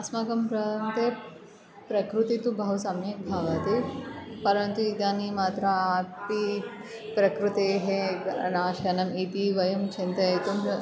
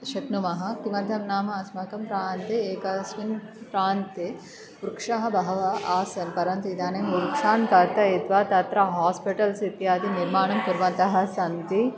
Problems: background sounds at intervals